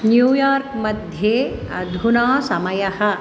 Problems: constant background noise